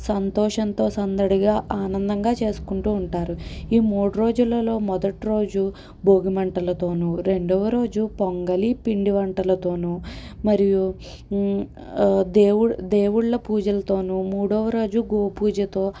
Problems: none marked